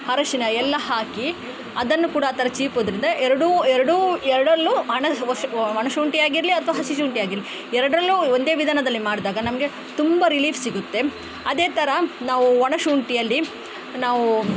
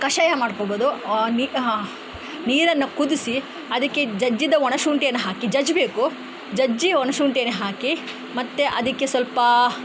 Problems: none marked